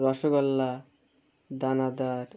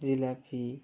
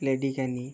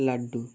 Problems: constant background noise